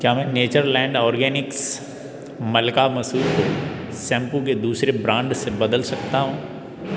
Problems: background sounds at intervals